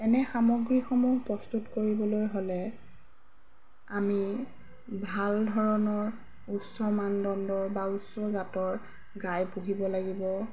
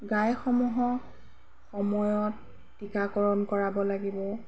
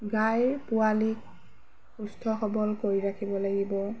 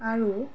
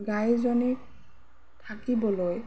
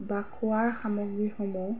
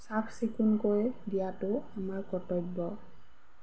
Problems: background sounds at intervals